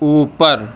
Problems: none marked